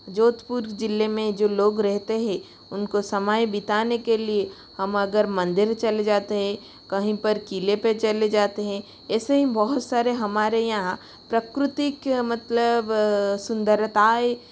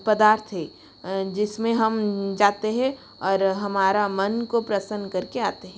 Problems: constant background noise